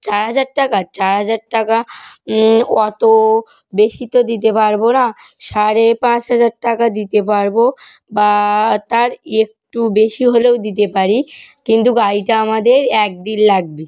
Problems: none marked